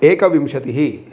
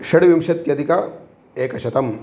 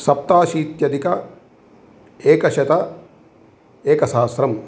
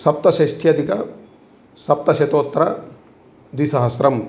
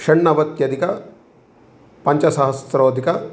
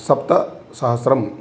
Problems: constant background noise